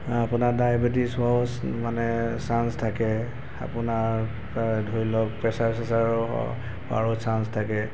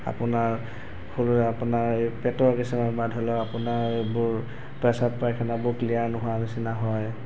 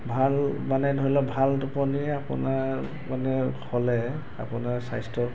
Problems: background sounds at intervals